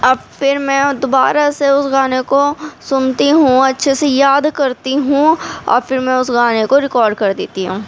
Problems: constant background noise, background conversations at intervals